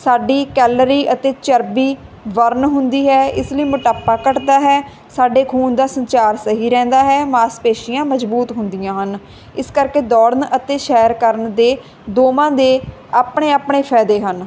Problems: constant background noise